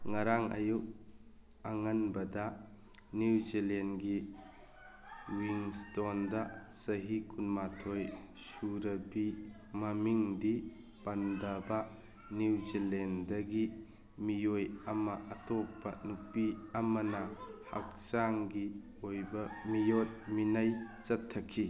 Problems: background conversations at intervals